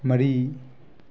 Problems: none marked